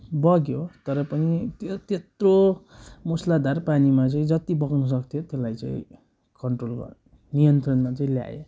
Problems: none marked